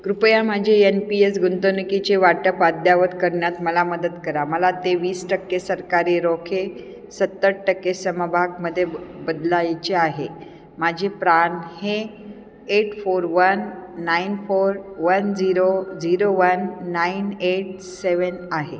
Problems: constant background noise, echo